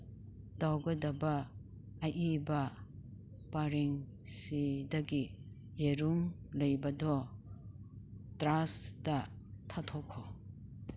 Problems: none marked